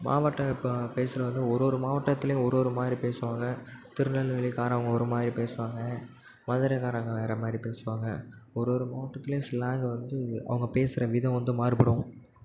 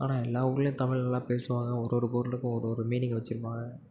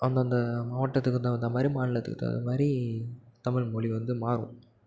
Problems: constant background noise